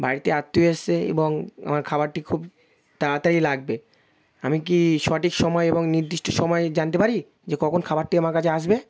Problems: constant background noise, background conversations at intervals